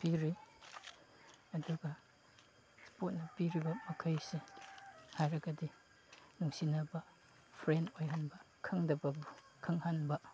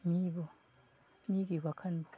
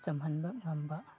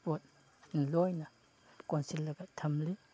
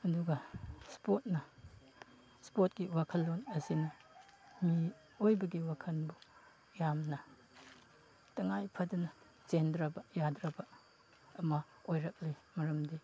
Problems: background sounds at intervals